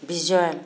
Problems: none marked